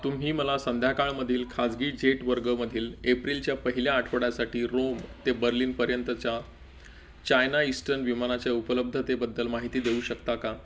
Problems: none marked